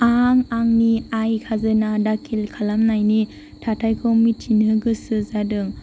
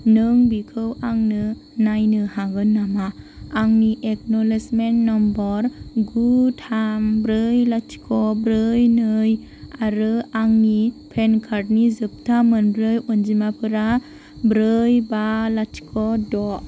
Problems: constant background noise